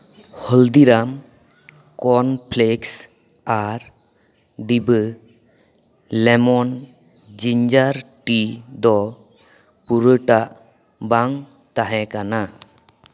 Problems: background sounds at intervals, echo